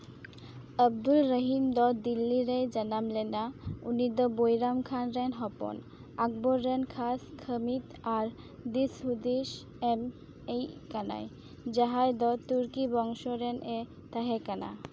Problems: none marked